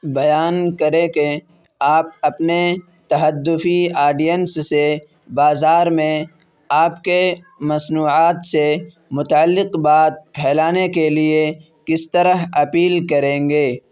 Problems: constant background noise